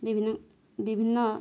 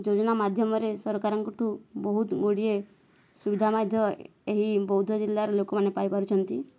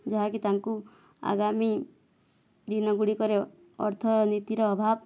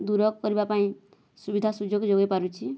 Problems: background sounds at intervals